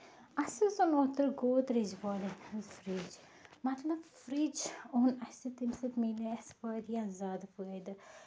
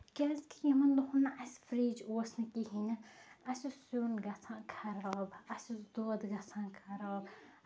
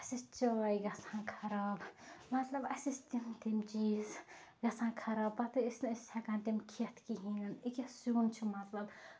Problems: background sounds at intervals